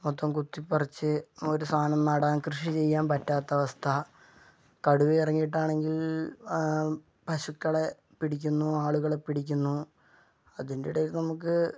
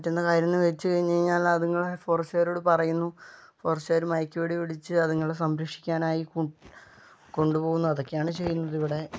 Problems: none marked